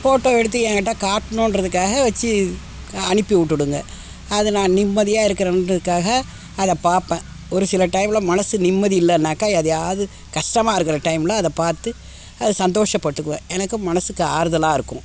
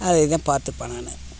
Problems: constant background noise